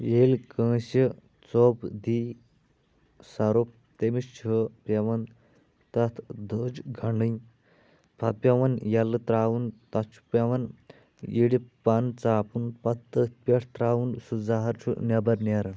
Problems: none marked